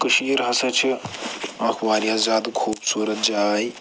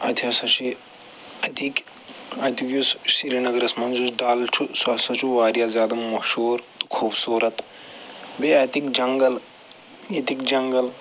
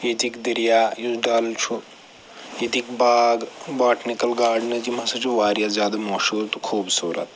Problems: none marked